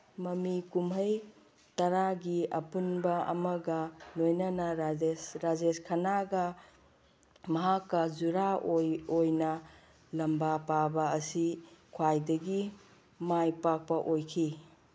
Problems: none marked